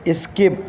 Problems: constant background noise